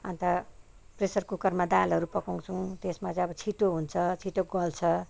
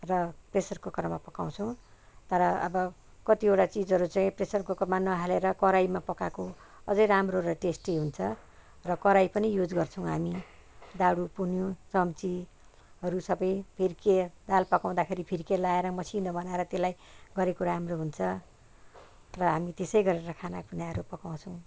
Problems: none marked